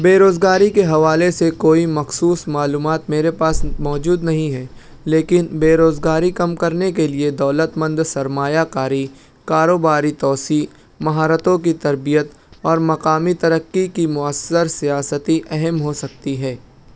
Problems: background sounds at intervals